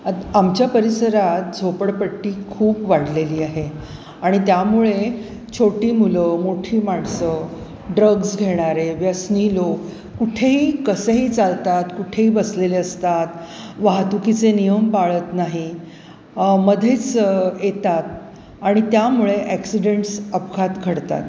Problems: constant background noise, background conversations at intervals, echo